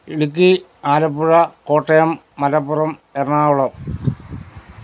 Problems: background sounds at intervals